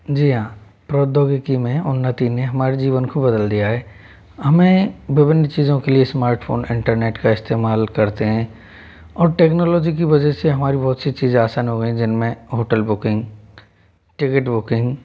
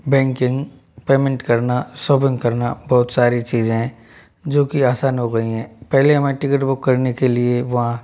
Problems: none marked